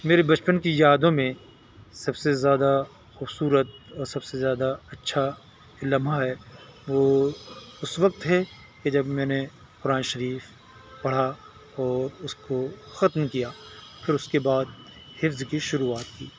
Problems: none marked